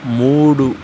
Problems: constant background noise